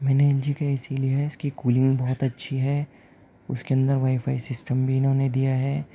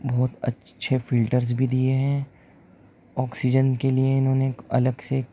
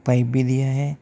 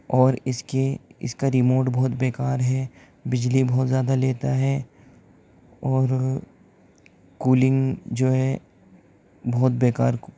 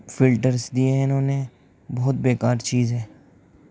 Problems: none marked